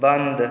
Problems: constant background noise